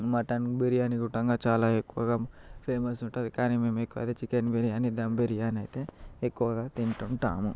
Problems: constant background noise